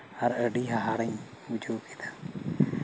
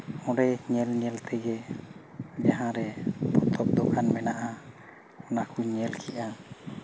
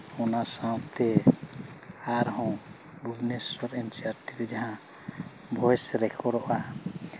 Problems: none marked